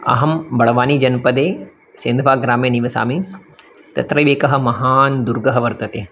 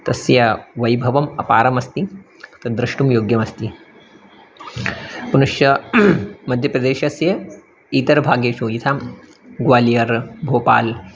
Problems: none marked